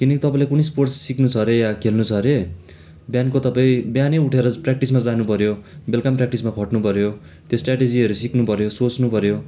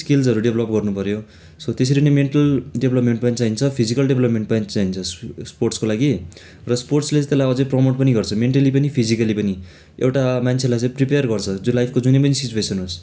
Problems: none marked